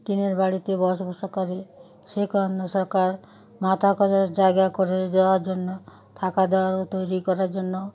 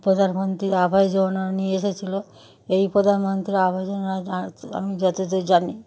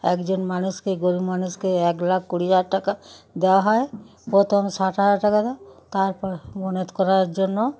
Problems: continuous background conversations